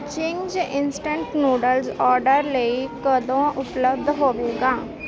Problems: constant background noise